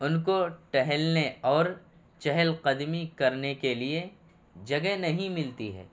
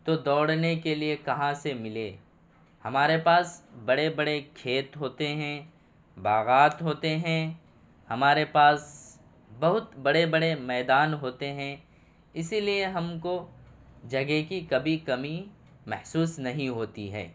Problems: none marked